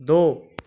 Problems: none marked